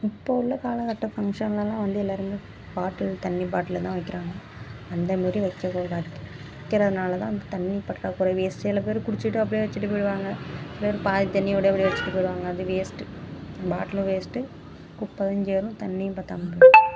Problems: constant background noise